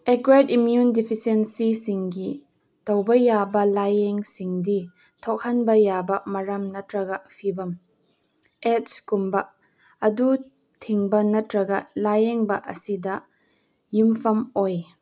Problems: none marked